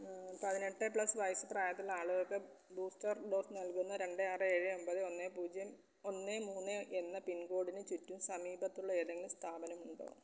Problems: background sounds at intervals, low volume